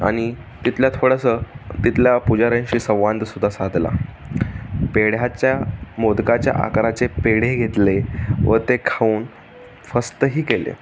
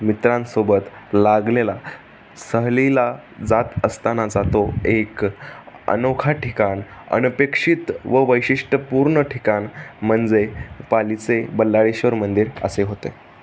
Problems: none marked